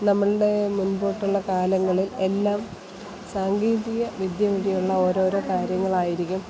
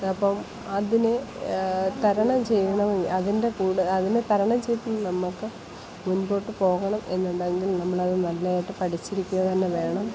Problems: constant background noise, background conversations at intervals